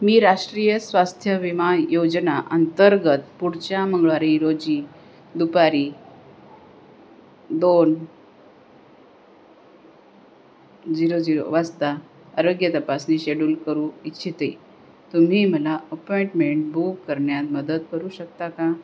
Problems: constant background noise, background conversations at intervals